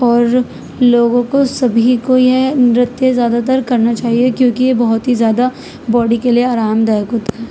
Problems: constant background noise, background conversations at intervals